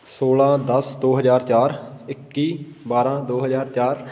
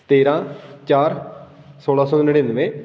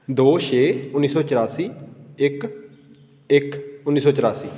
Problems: constant background noise